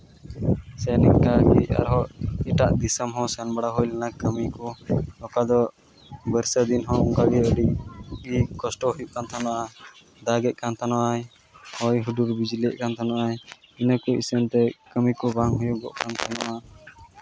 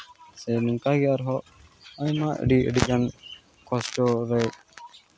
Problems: background sounds at intervals, background conversations at intervals